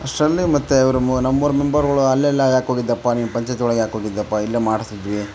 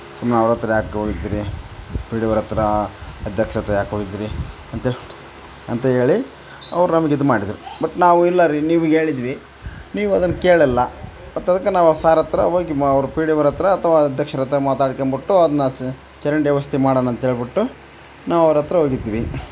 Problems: none marked